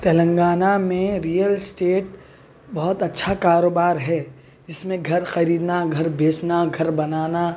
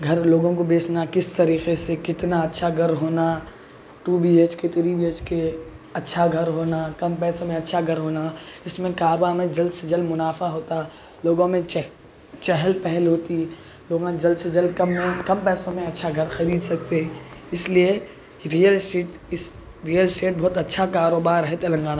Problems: constant background noise, background conversations at intervals